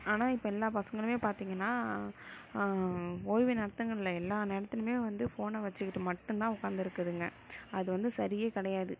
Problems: none marked